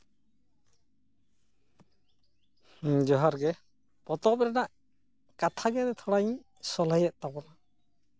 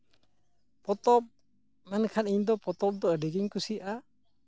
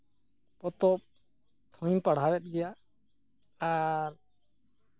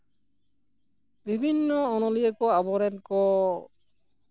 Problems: none marked